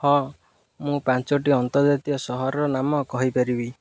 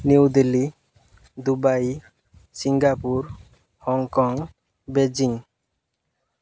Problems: none marked